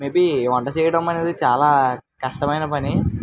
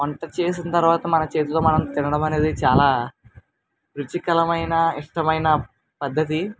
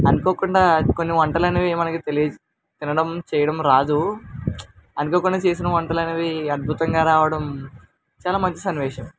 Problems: constant background noise